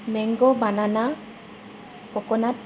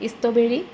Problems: constant background noise